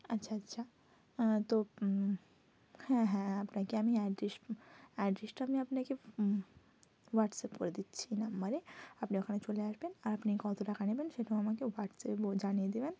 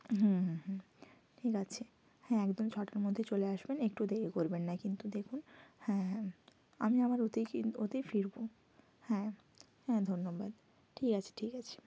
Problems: constant background noise